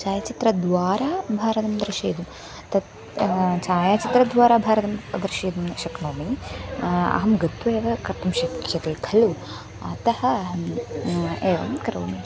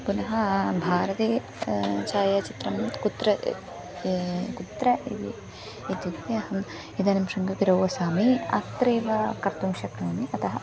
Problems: background sounds at intervals